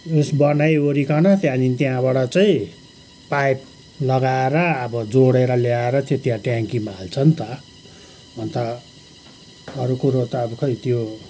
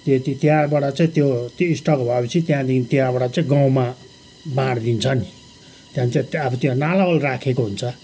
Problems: background sounds at intervals